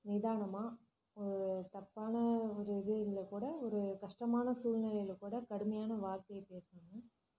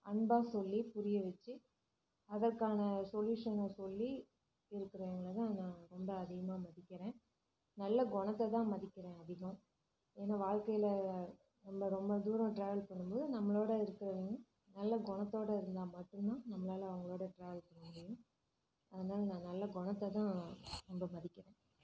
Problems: low volume